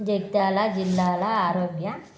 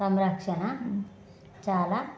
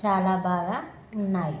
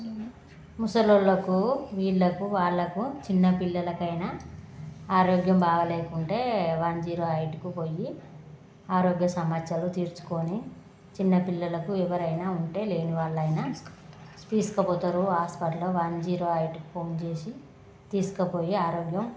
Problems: constant background noise, background conversations at intervals